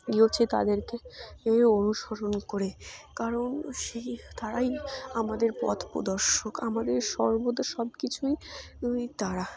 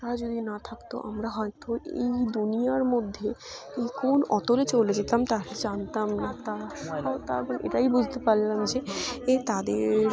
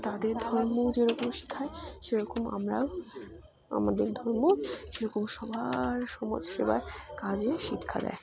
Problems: none marked